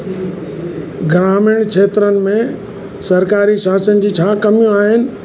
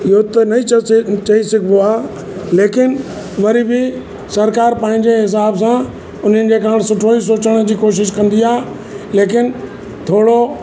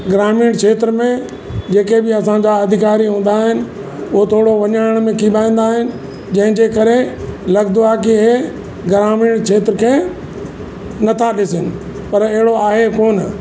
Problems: constant background noise, echo